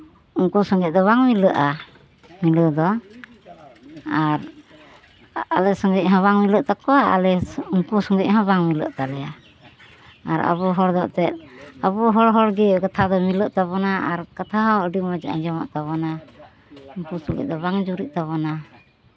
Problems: background sounds at intervals, continuous background conversations